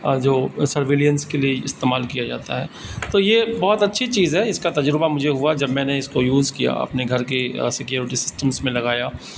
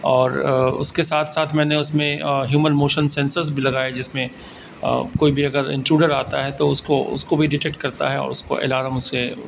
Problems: constant background noise